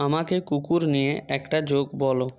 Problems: constant background noise